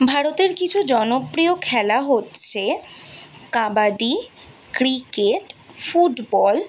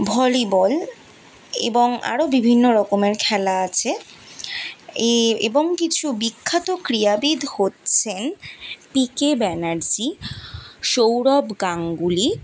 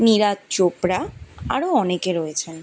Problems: constant background noise